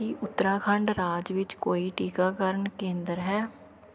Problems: none marked